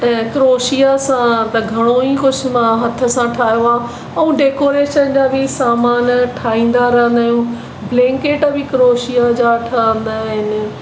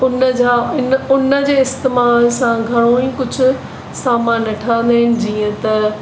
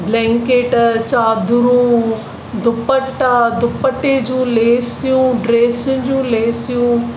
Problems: constant background noise